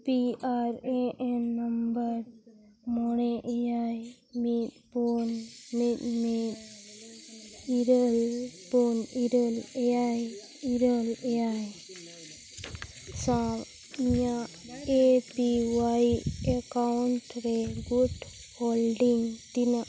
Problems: background sounds at intervals, background conversations at intervals